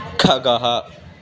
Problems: background sounds at intervals